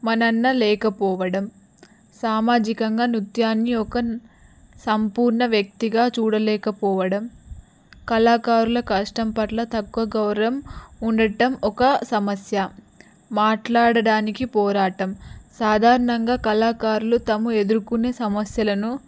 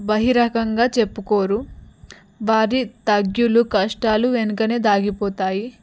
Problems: background sounds at intervals